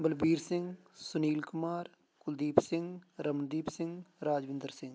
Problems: background conversations at intervals